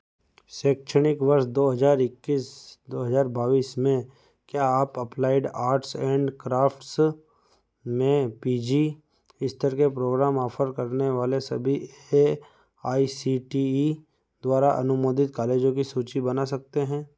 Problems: background sounds at intervals